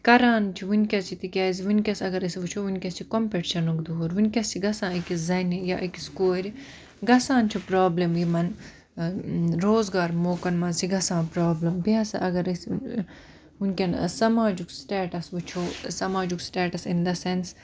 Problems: none marked